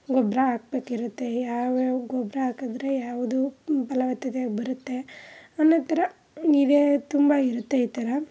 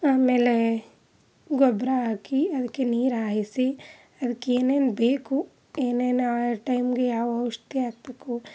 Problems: background sounds at intervals